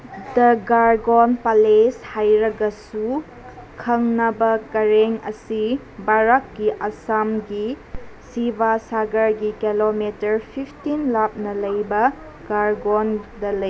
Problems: background sounds at intervals